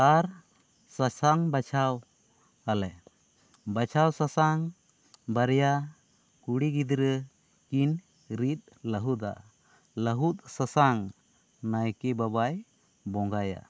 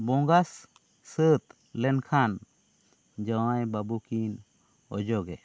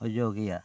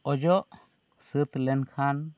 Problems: none marked